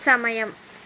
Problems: constant background noise